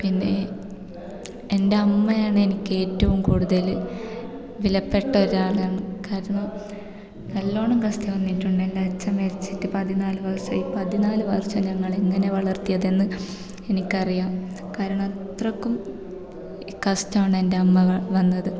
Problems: background sounds at intervals